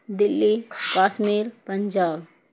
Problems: constant background noise